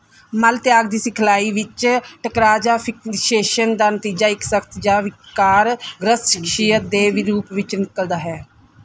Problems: none marked